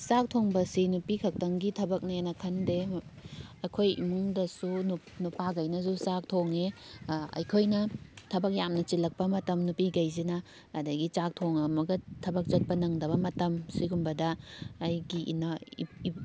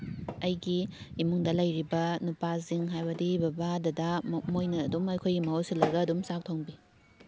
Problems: constant background noise